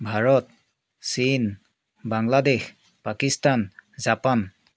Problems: none marked